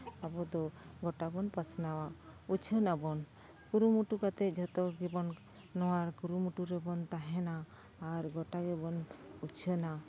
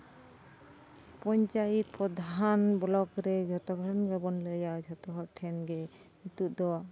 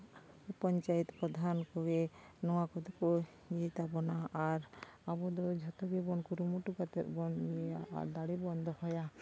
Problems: background sounds at intervals, background conversations at intervals